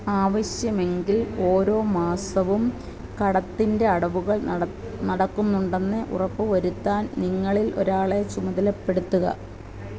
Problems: constant background noise